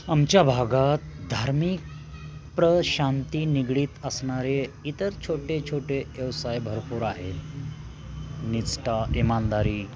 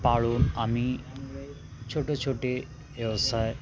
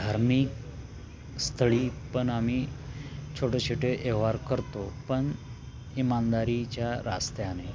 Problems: constant background noise, continuous background conversations